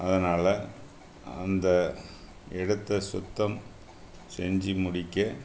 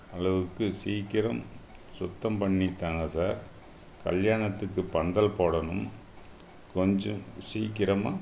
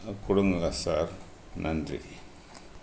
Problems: none marked